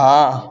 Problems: none marked